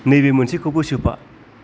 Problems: constant background noise